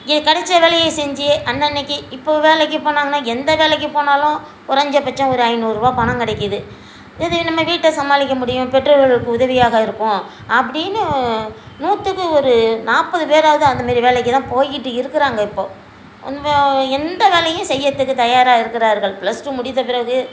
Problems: constant background noise